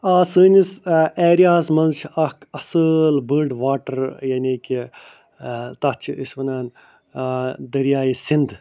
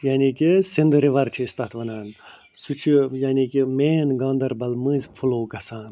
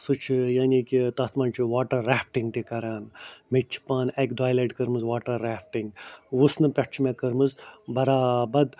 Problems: none marked